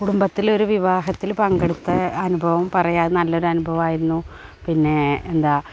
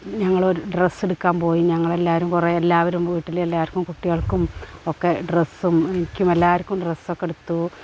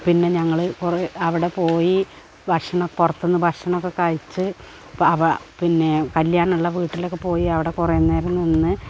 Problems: none marked